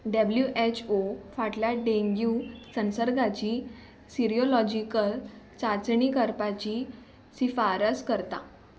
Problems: background sounds at intervals